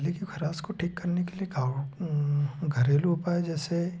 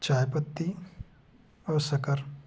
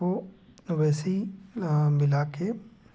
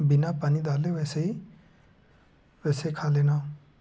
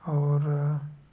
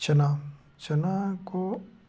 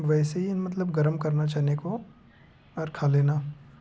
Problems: low volume